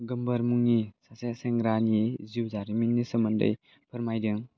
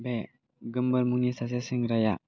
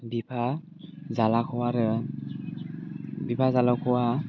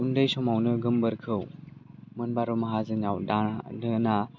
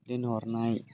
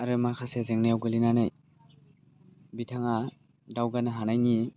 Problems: low volume